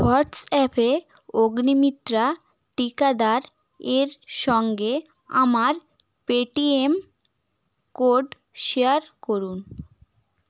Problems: background sounds at intervals